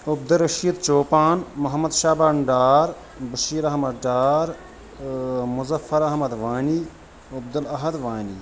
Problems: constant background noise